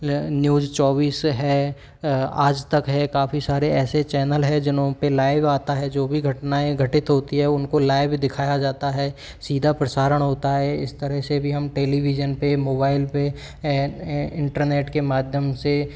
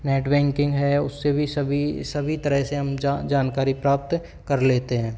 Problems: background sounds at intervals